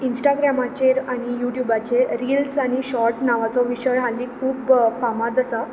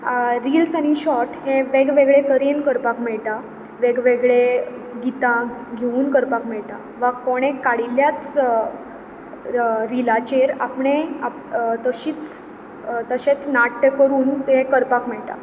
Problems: background sounds at intervals